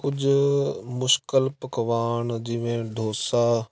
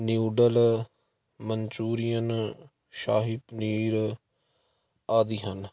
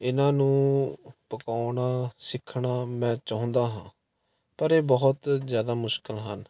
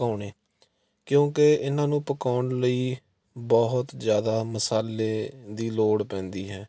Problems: none marked